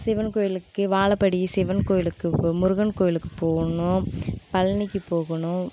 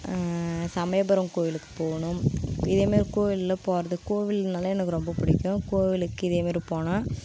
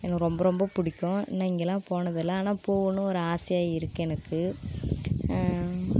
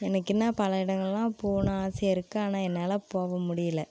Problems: constant background noise